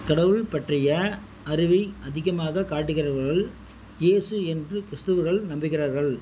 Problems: constant background noise